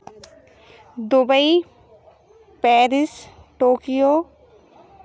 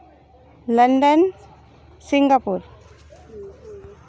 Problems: background sounds at intervals, background conversations at intervals